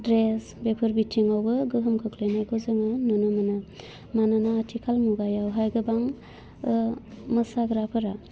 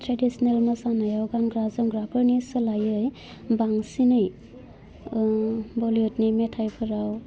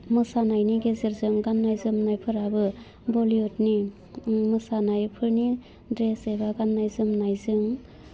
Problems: constant background noise